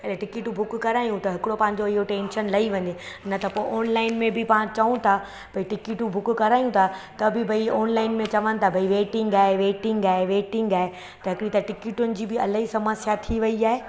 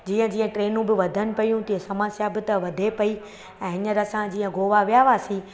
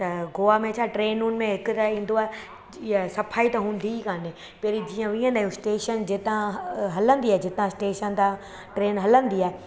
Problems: constant background noise, echo